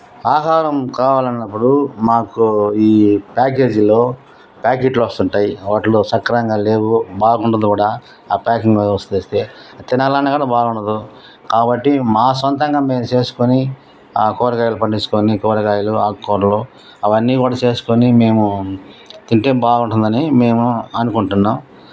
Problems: constant background noise